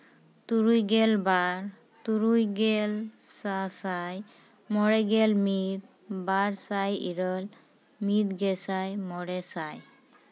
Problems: none marked